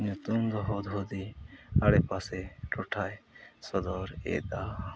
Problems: none marked